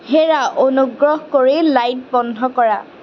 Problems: constant background noise